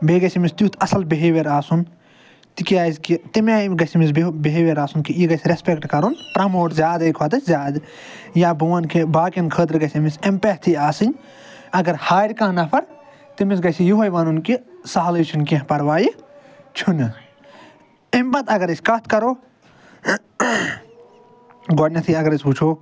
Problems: background sounds at intervals